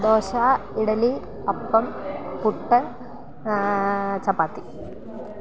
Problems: none marked